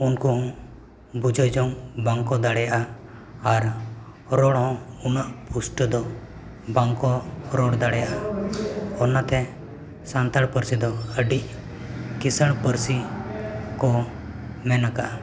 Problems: continuous background conversations